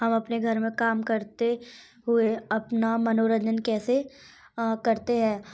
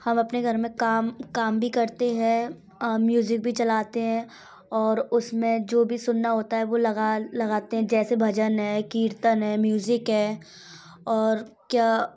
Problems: background sounds at intervals